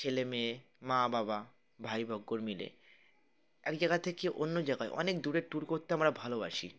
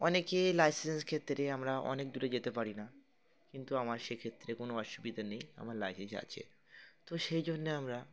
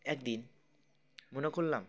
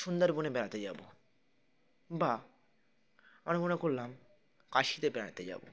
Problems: constant background noise, continuous background conversations